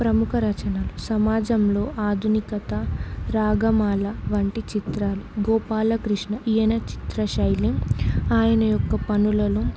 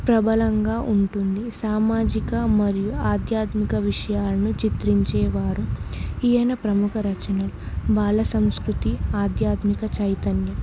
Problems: constant background noise